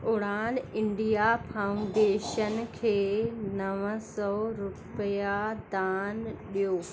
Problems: constant background noise